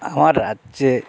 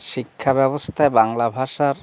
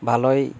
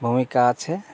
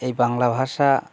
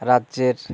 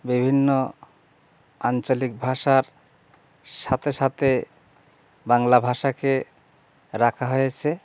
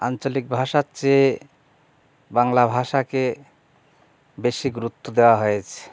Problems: background sounds at intervals